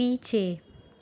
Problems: background sounds at intervals